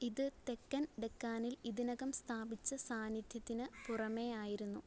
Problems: background sounds at intervals, low volume